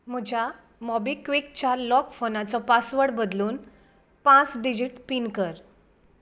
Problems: background sounds at intervals